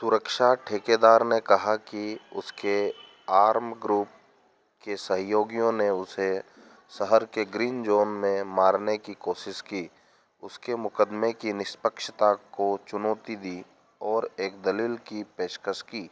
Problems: constant background noise